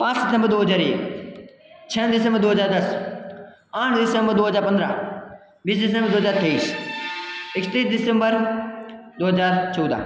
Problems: background sounds at intervals